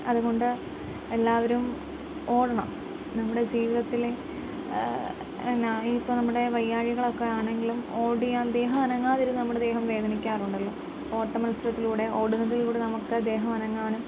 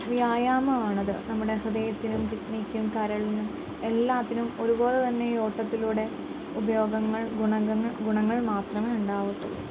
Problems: constant background noise